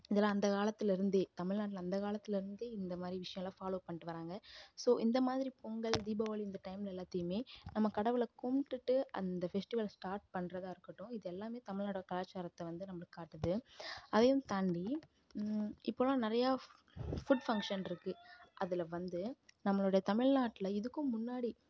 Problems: background sounds at intervals, low volume